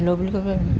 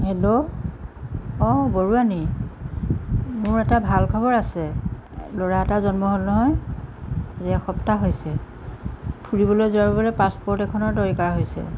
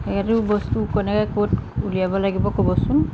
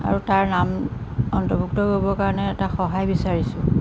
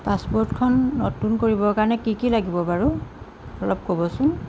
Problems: background sounds at intervals